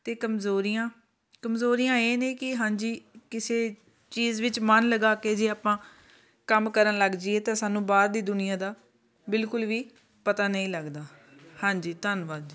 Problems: background sounds at intervals, continuous background conversations